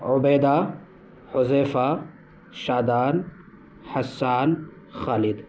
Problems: constant background noise